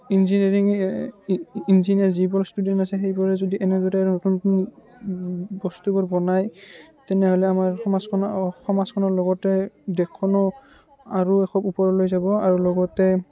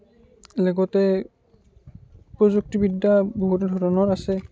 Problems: background sounds at intervals, background conversations at intervals